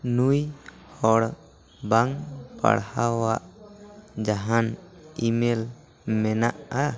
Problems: continuous background conversations